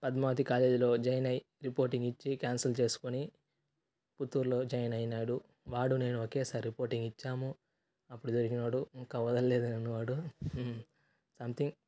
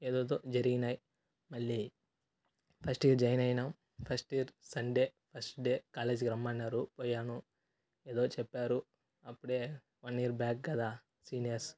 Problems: none marked